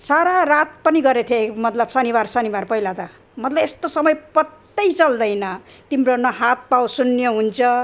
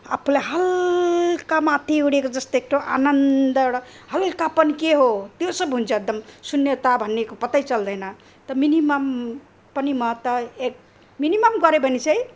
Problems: none marked